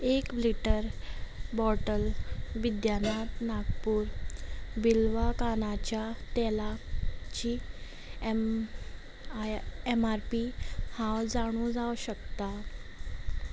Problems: background sounds at intervals